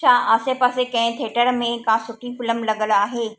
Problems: echo